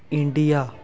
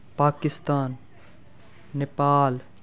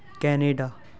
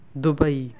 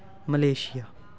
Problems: continuous background conversations